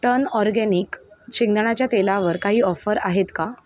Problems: background sounds at intervals